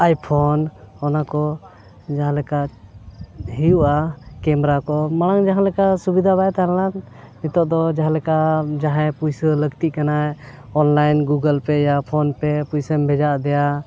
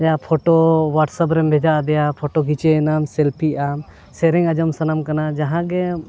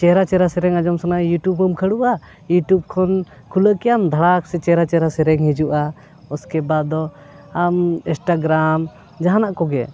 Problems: none marked